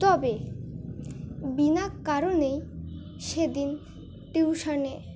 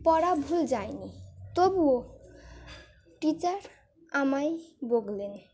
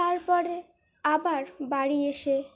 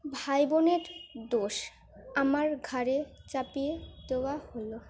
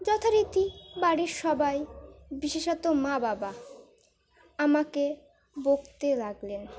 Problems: background sounds at intervals